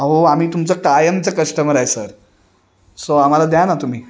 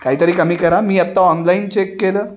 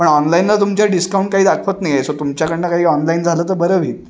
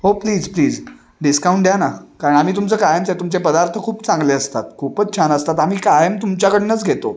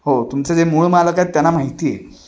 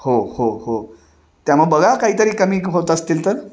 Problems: background sounds at intervals, continuous background conversations